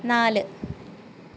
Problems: constant background noise